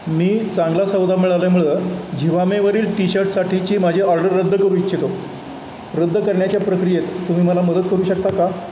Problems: constant background noise